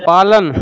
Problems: none marked